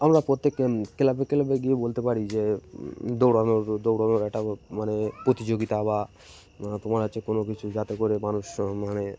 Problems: constant background noise